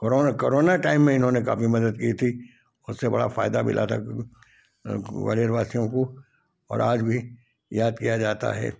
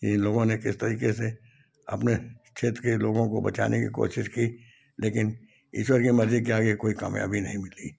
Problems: background sounds at intervals